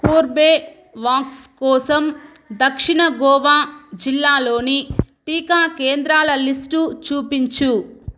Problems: background sounds at intervals